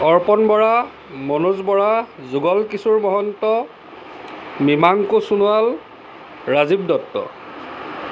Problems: constant background noise